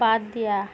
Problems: none marked